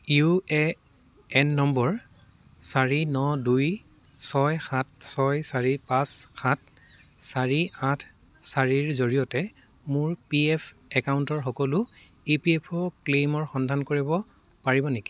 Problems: background sounds at intervals